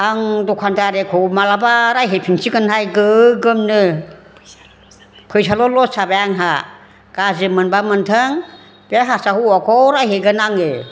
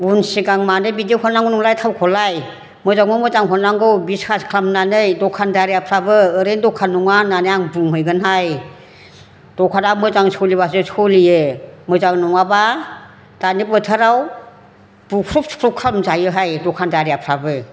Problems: background conversations at intervals